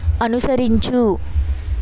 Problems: constant background noise